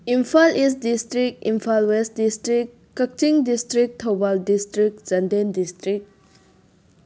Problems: none marked